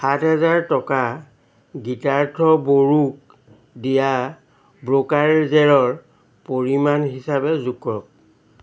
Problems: constant background noise